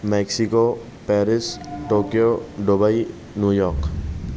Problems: constant background noise